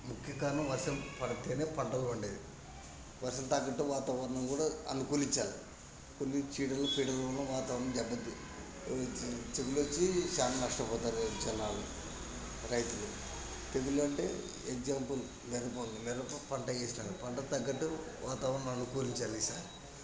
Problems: constant background noise, continuous background conversations, low volume